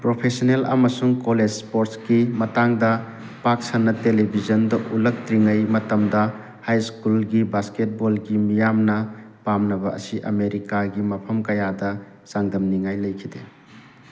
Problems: constant background noise